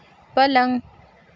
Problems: constant background noise